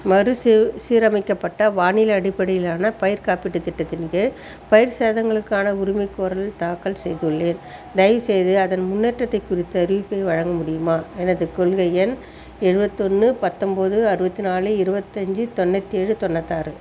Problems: constant background noise, background conversations at intervals